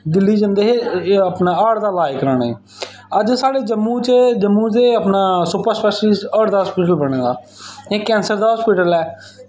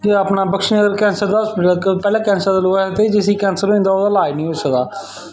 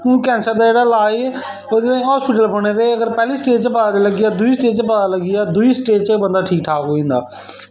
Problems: background sounds at intervals, echo